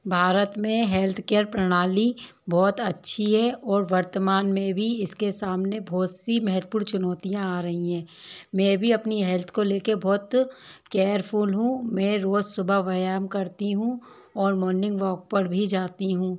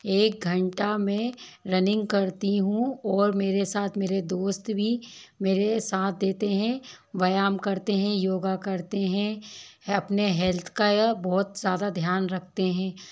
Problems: constant background noise, low volume